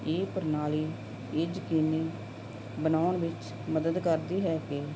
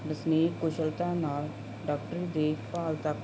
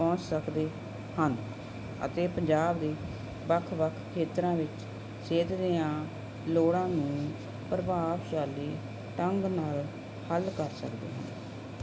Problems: none marked